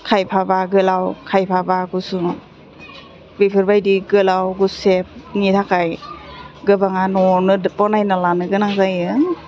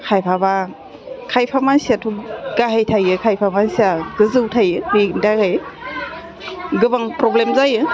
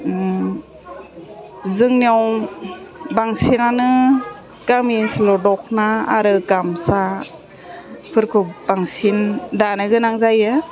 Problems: constant background noise, continuous background conversations, low volume